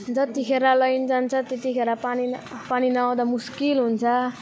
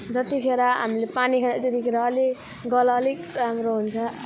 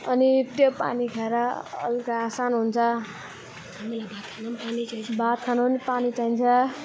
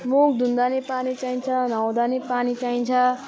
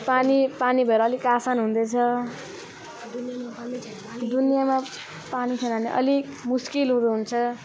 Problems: none marked